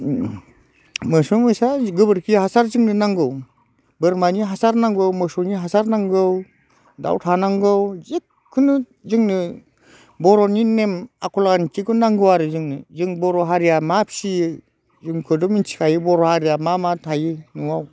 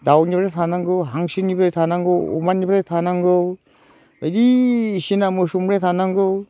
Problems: none marked